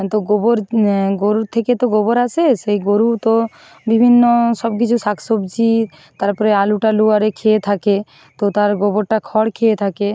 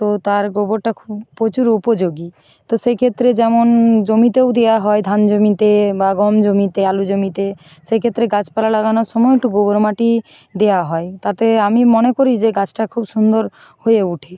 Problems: constant background noise